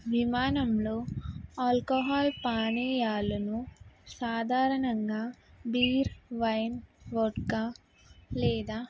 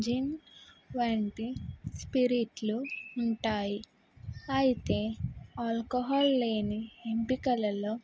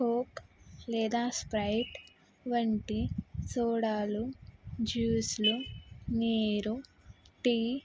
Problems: background sounds at intervals